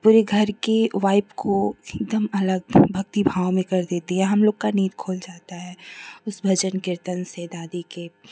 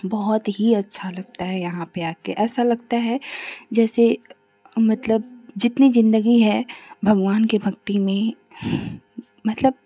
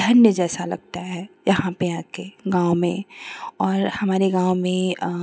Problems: none marked